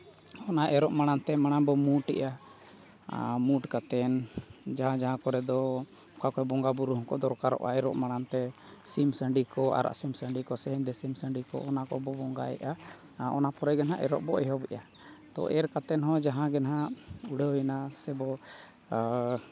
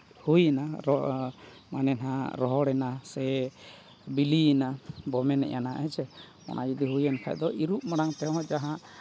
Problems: none marked